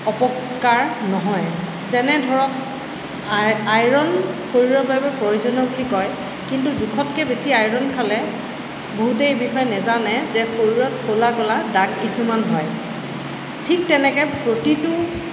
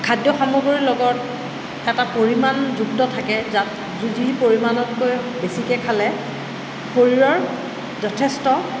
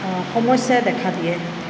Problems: constant background noise